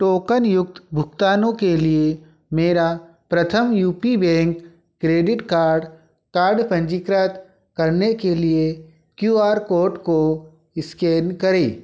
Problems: none marked